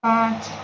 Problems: constant background noise